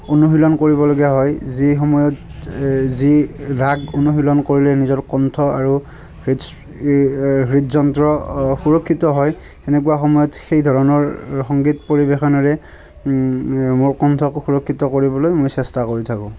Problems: constant background noise, continuous background conversations